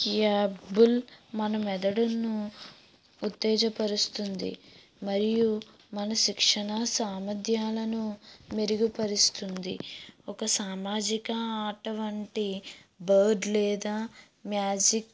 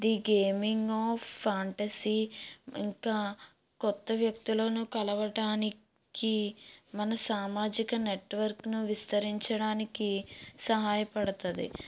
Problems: background sounds at intervals